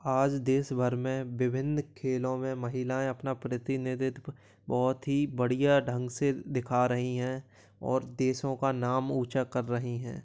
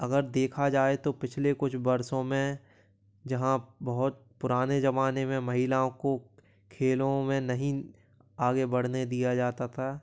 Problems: background sounds at intervals